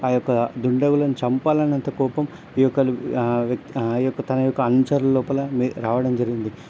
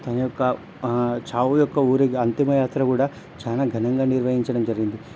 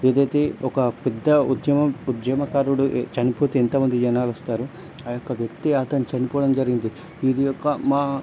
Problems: none marked